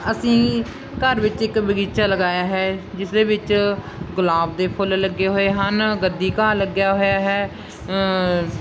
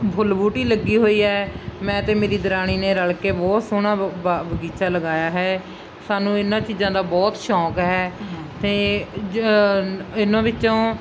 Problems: constant background noise